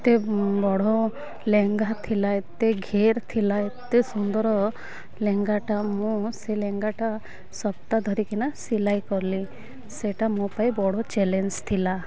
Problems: none marked